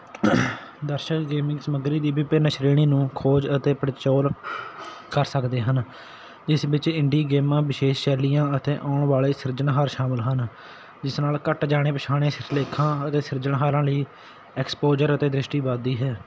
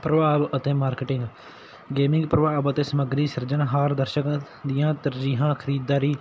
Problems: none marked